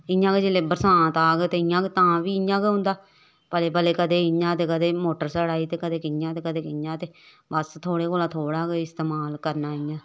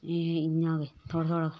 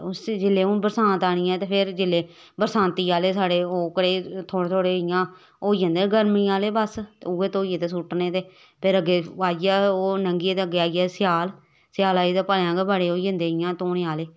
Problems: none marked